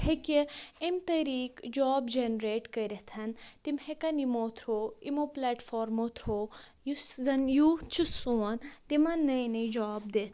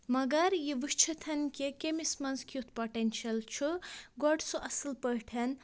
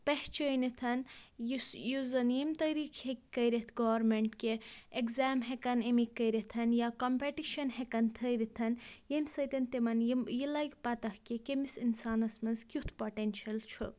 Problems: low volume